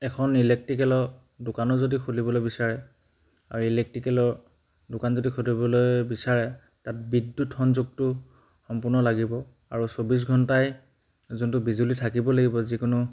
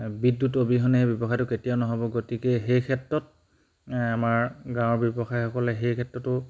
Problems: none marked